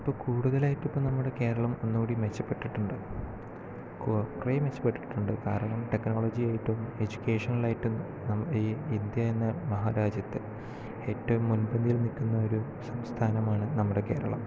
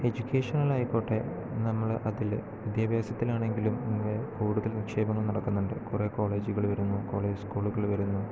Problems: constant background noise, low volume